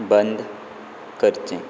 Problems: constant background noise